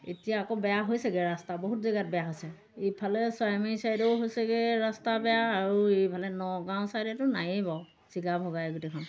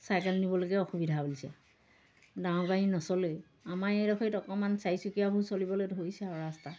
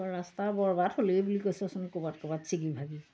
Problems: none marked